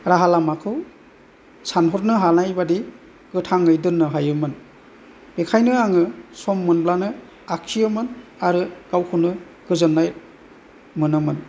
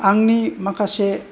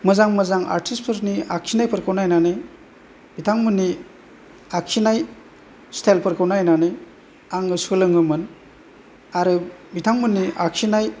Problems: background sounds at intervals